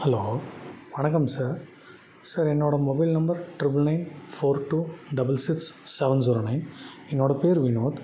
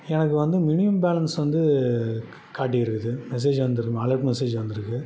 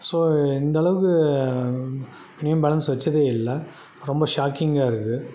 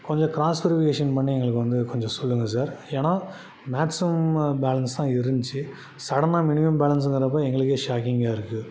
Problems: background sounds at intervals